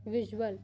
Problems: constant background noise, low volume